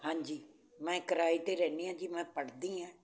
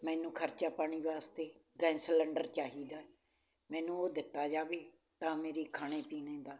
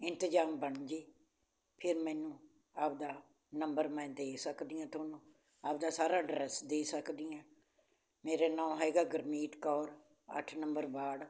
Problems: none marked